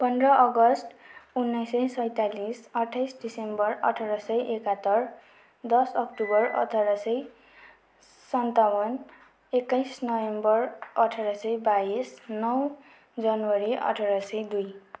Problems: background sounds at intervals